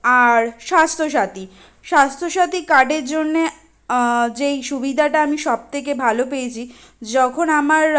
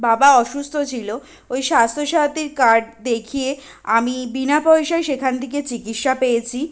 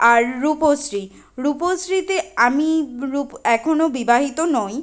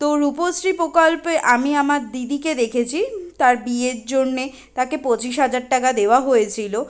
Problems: constant background noise